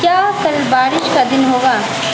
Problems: constant background noise